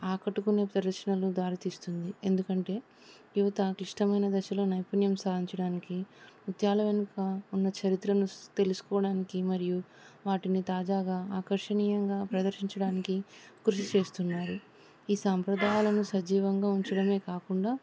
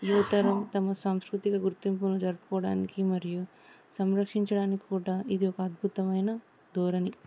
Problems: none marked